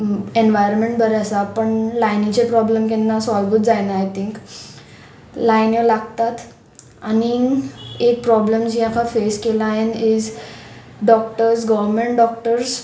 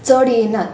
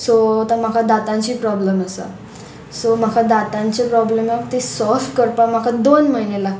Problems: none marked